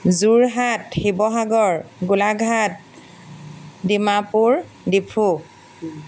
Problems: none marked